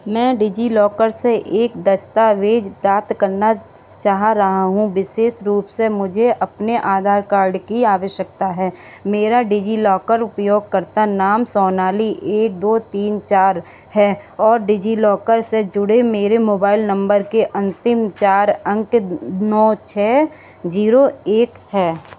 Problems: none marked